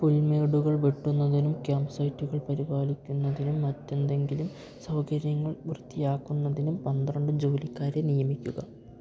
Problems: background sounds at intervals